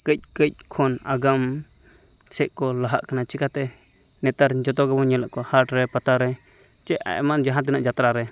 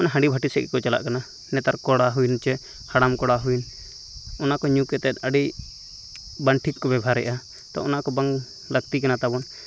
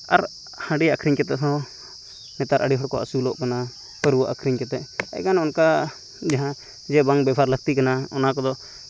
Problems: constant background noise